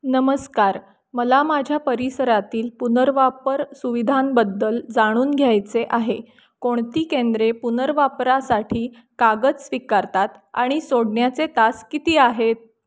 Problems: none marked